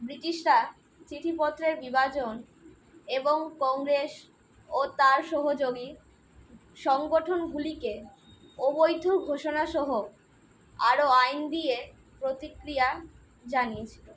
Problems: constant background noise